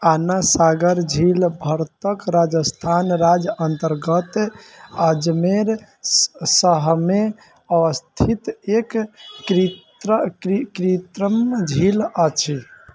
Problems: none marked